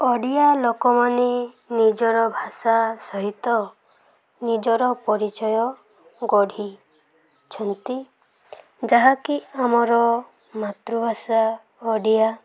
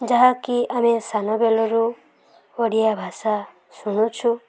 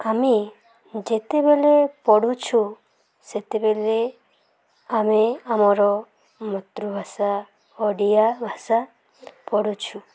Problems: background sounds at intervals, background conversations at intervals